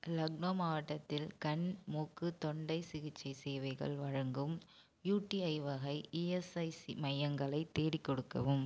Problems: low volume